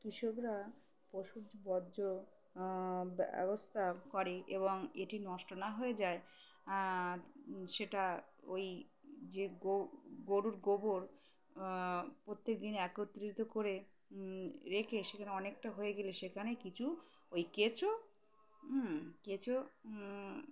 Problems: none marked